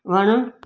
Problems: background sounds at intervals, echo